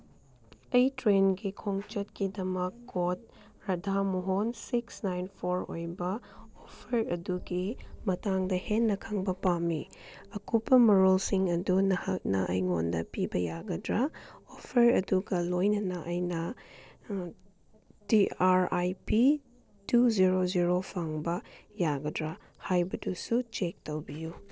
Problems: background sounds at intervals